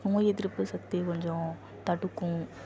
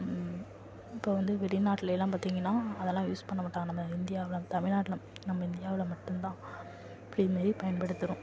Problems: low volume